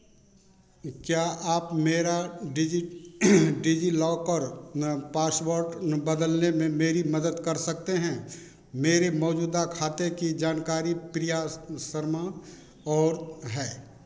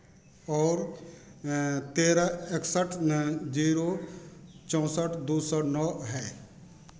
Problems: none marked